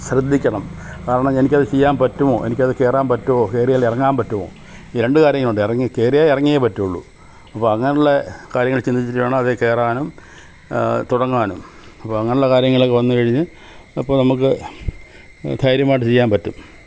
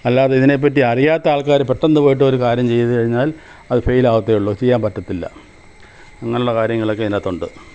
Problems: constant background noise